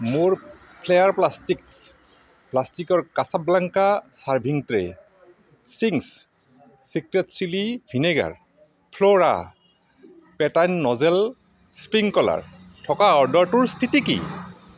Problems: constant background noise